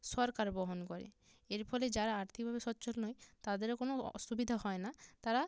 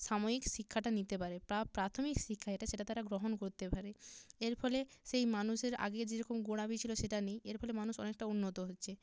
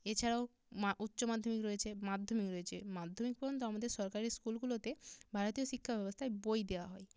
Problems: low volume